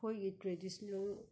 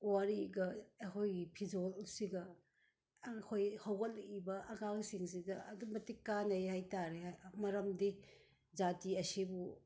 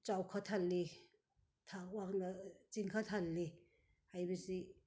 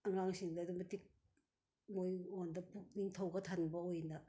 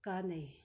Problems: none marked